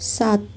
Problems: constant background noise